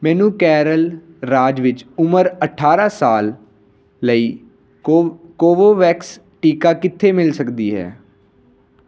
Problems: none marked